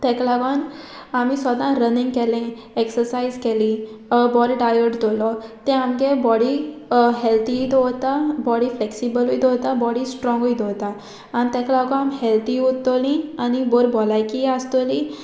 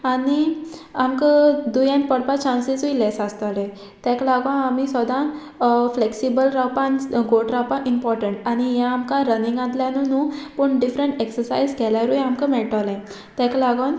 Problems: background sounds at intervals